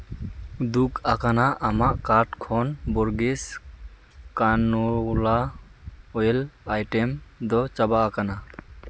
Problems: constant background noise